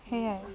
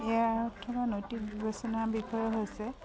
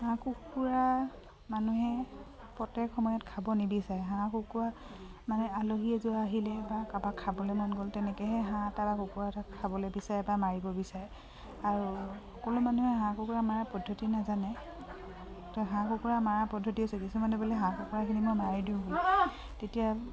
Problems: background sounds at intervals